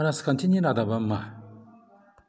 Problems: low volume